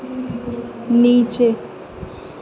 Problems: none marked